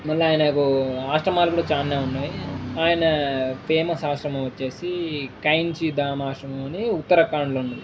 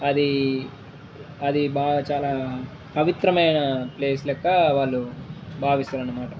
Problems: background sounds at intervals